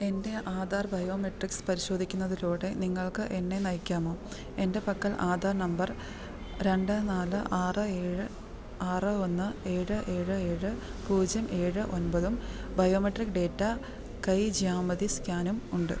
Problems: constant background noise, low volume